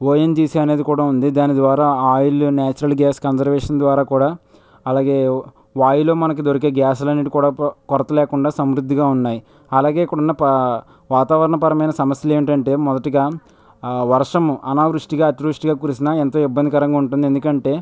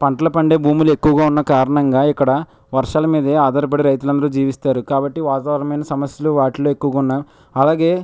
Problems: none marked